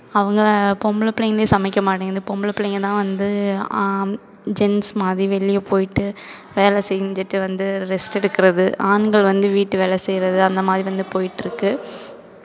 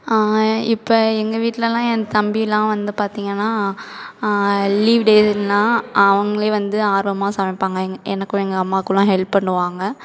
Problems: none marked